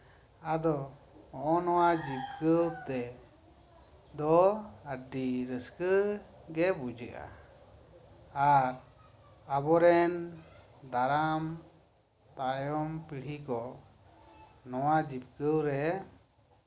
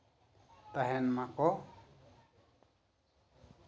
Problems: none marked